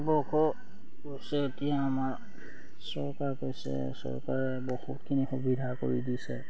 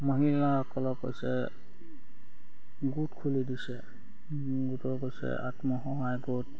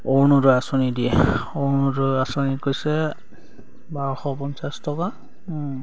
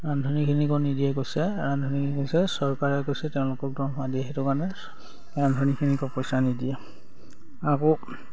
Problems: background sounds at intervals